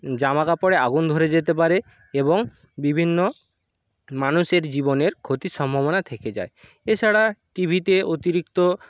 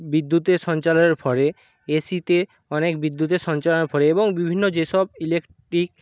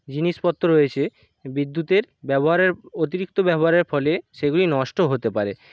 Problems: none marked